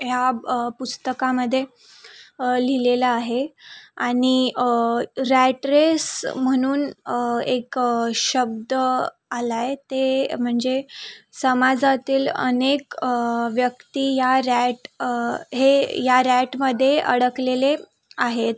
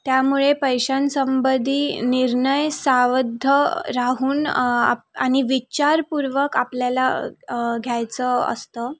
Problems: background sounds at intervals